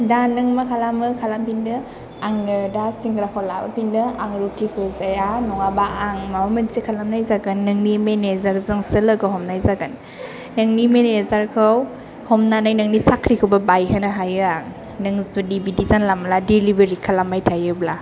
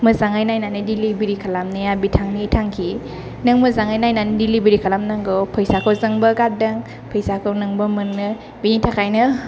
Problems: none marked